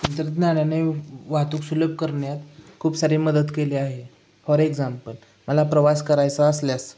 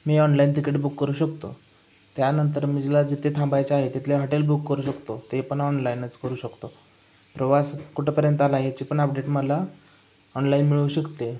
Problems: background sounds at intervals, echo